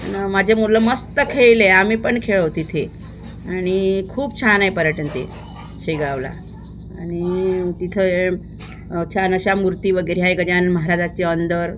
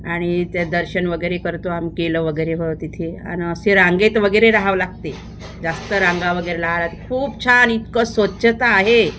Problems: constant background noise